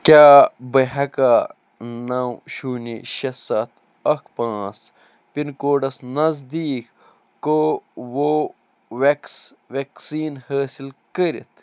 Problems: none marked